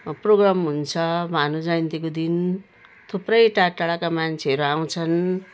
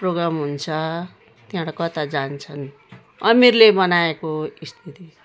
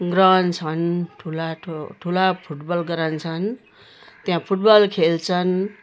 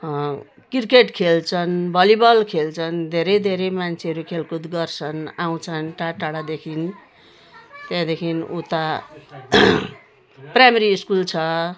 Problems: constant background noise